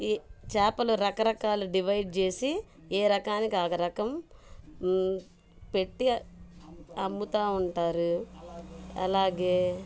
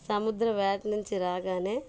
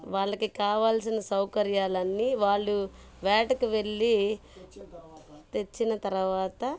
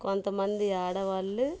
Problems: background sounds at intervals, low volume